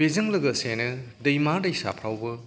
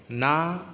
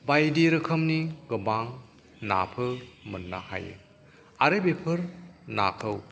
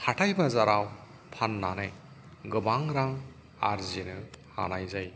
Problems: background sounds at intervals